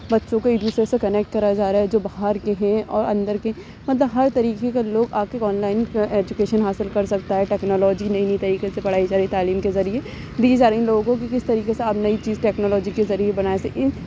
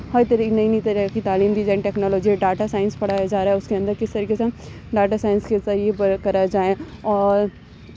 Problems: constant background noise